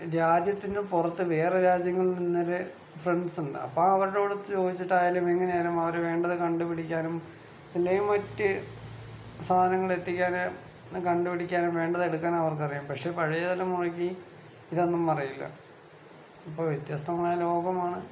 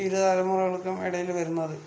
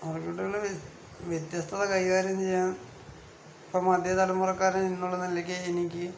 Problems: none marked